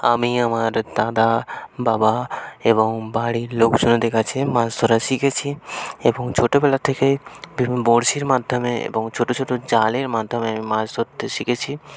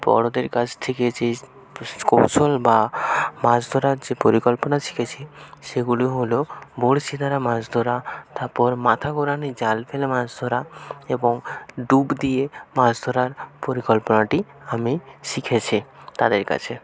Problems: none marked